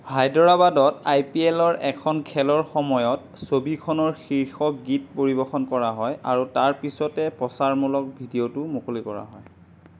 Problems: none marked